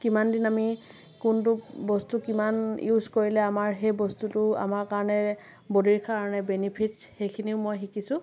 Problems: none marked